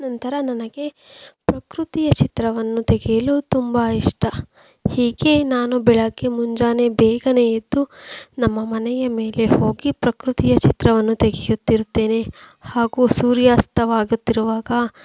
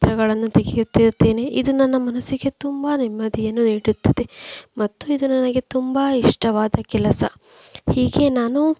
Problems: background sounds at intervals